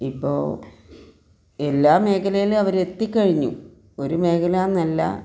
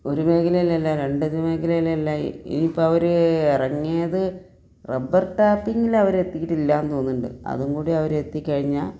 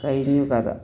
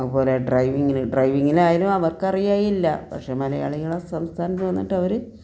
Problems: none marked